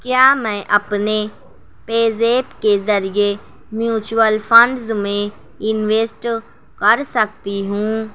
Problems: constant background noise